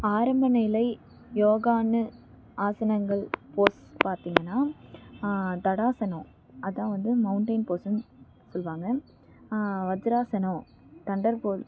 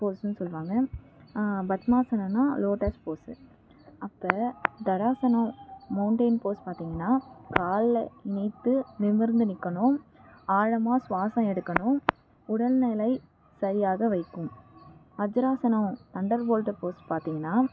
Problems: background sounds at intervals, low volume